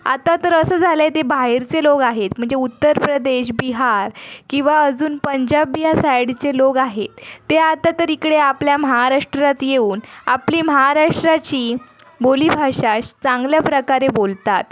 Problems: background sounds at intervals, continuous background conversations